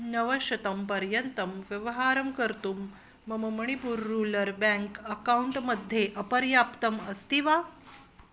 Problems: none marked